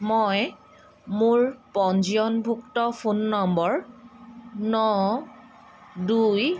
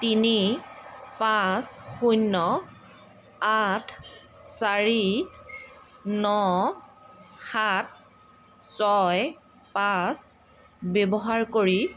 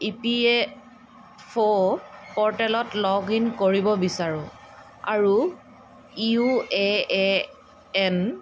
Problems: constant background noise